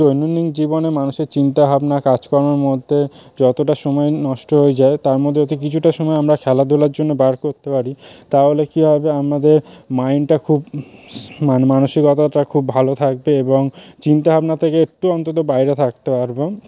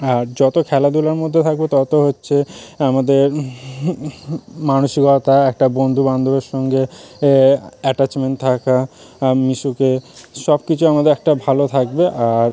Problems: constant background noise